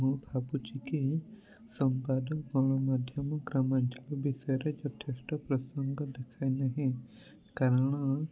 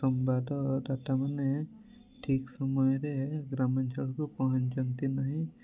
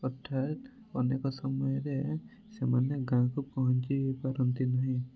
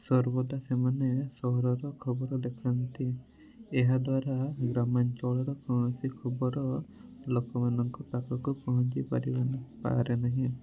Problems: none marked